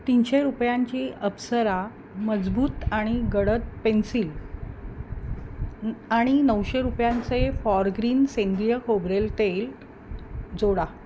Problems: none marked